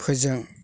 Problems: constant background noise